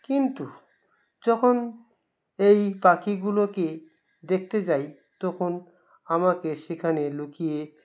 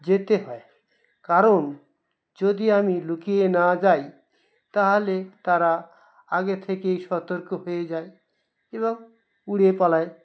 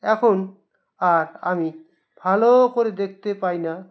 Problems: none marked